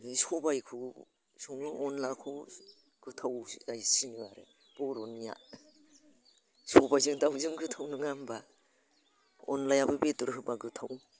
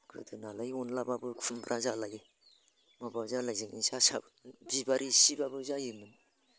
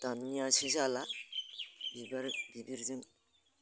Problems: constant background noise